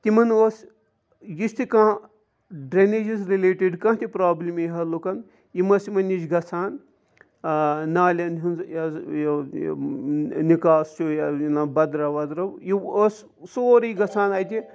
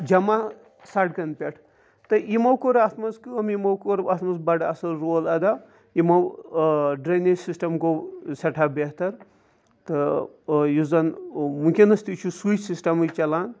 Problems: background sounds at intervals